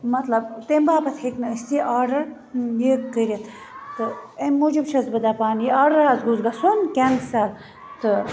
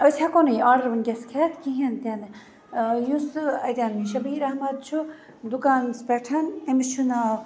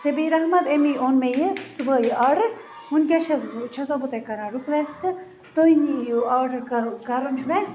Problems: constant background noise